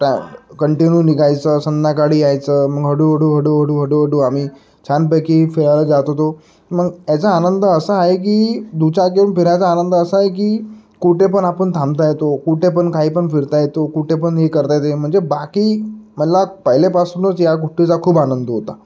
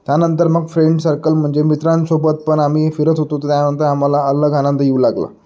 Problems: constant background noise, background conversations at intervals